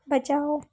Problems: background sounds at intervals